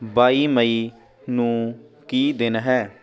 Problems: continuous background conversations